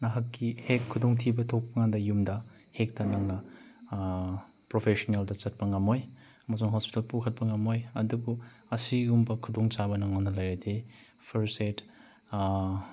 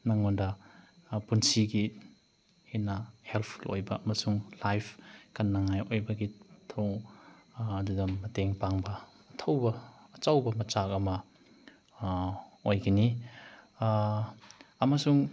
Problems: background sounds at intervals